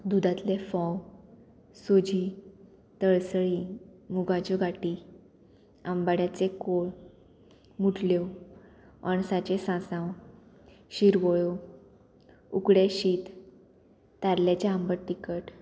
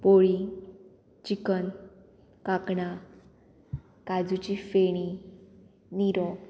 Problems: none marked